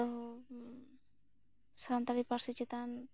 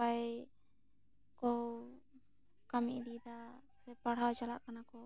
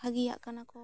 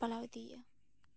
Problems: none marked